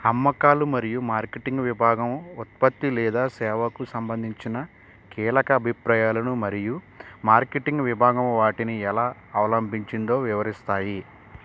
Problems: constant background noise